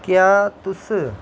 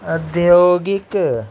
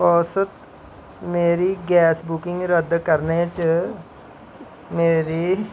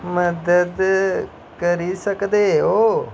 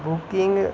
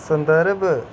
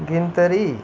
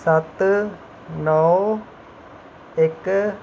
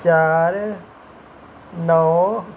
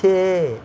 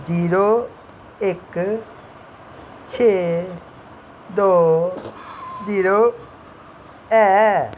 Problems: constant background noise